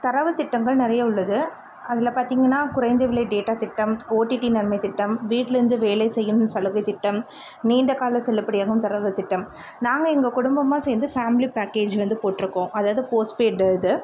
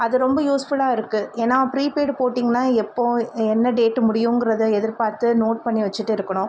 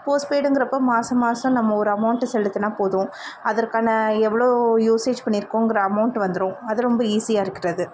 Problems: constant background noise